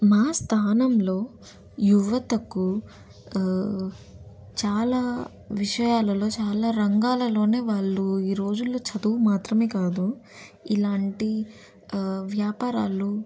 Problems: constant background noise